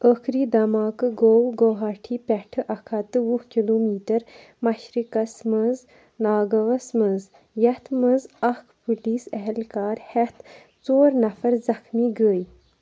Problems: background sounds at intervals